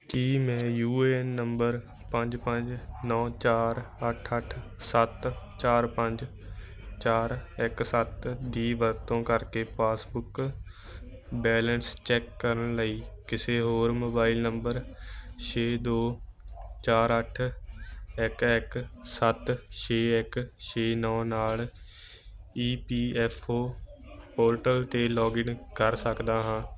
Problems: constant background noise